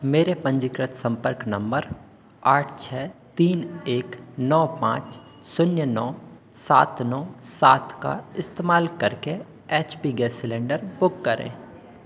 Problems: none marked